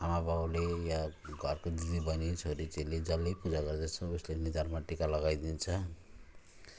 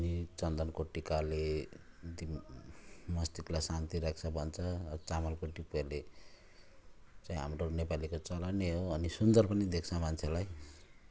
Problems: constant background noise